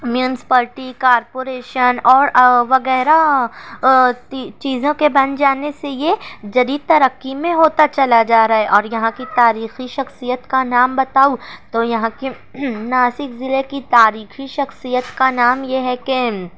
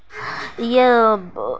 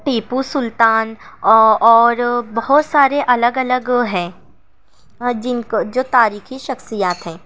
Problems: none marked